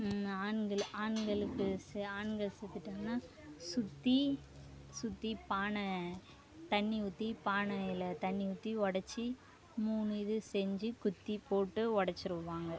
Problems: none marked